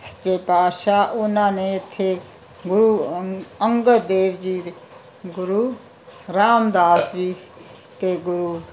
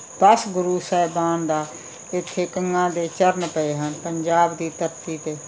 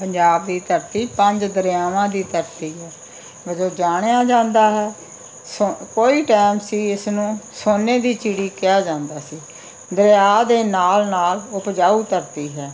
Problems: background sounds at intervals